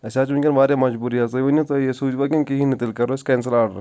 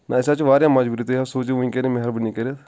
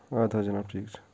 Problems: none marked